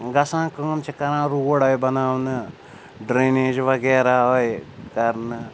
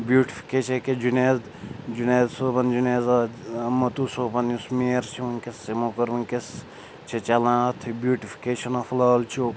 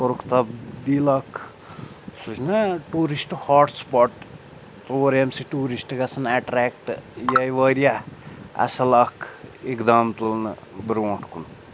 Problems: constant background noise, background conversations at intervals